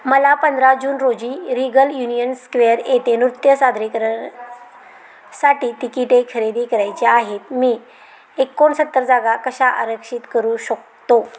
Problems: none marked